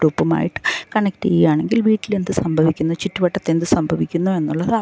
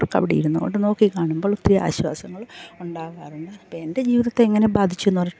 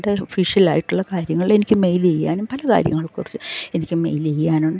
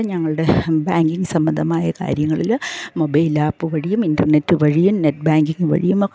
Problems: low volume